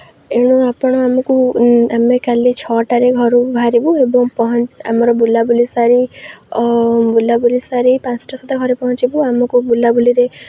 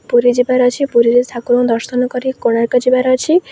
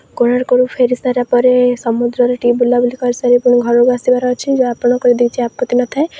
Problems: none marked